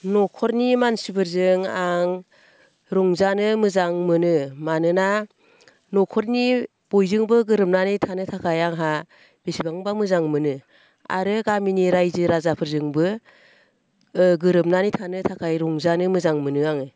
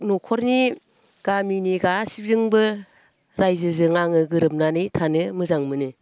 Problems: constant background noise